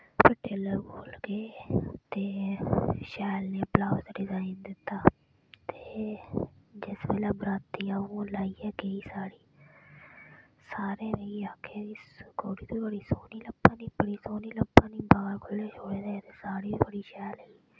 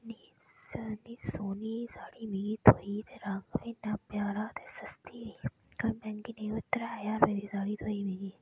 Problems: background sounds at intervals